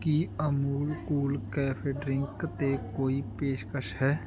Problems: background sounds at intervals